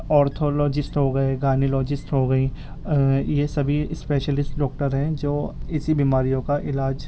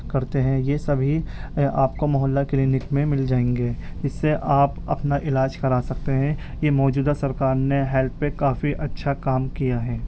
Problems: background sounds at intervals